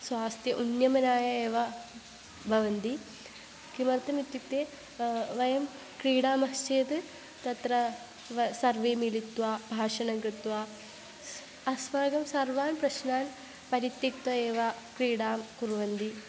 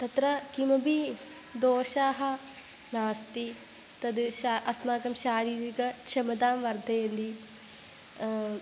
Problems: constant background noise